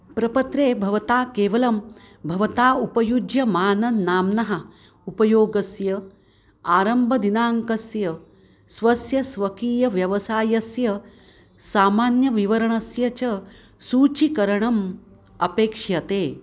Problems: none marked